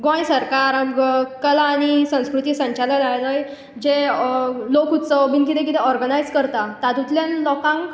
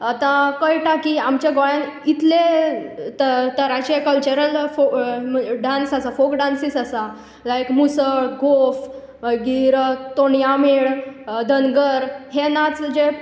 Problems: echo